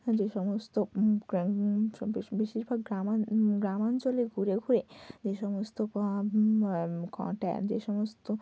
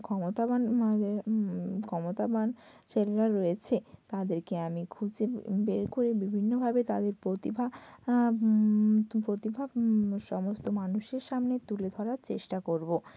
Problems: constant background noise, low volume